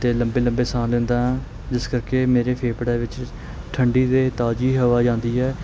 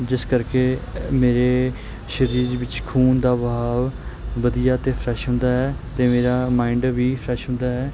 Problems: constant background noise